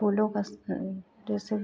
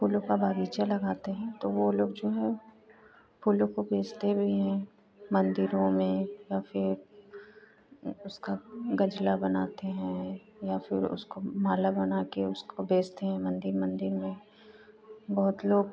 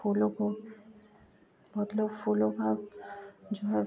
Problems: constant background noise